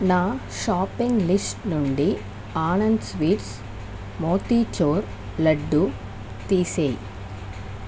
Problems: constant background noise